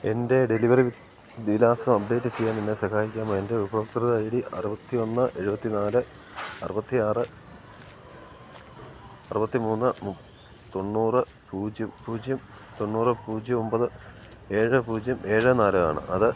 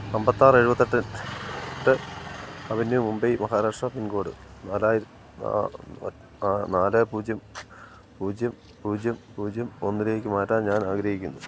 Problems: background sounds at intervals